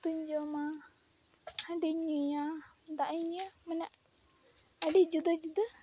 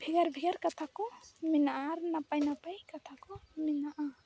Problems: background sounds at intervals